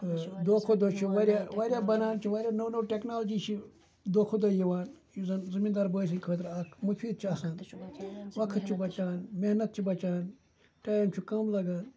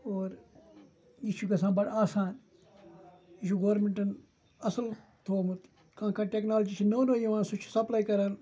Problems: constant background noise, continuous background conversations